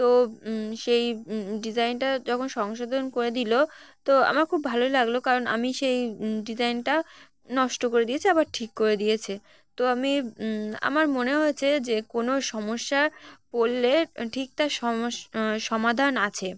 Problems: none marked